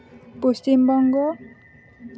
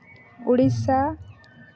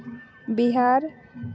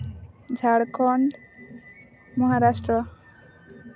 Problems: constant background noise